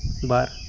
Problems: constant background noise